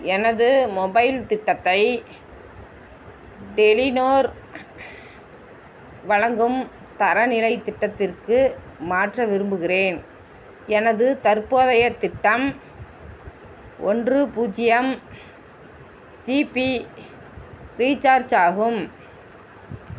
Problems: constant background noise